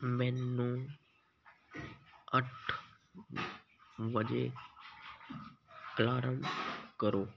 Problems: constant background noise